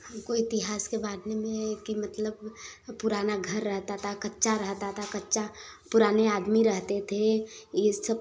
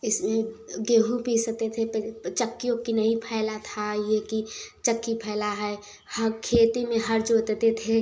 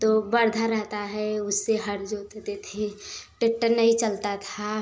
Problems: background sounds at intervals